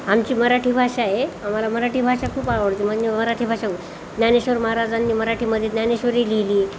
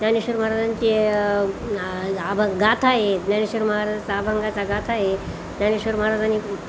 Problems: none marked